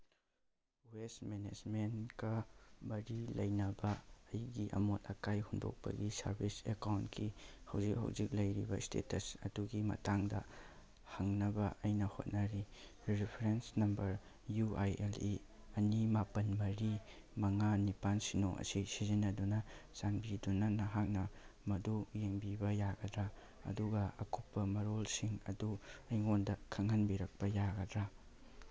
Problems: background sounds at intervals